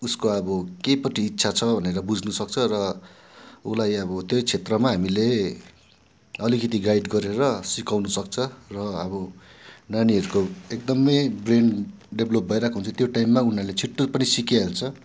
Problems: background sounds at intervals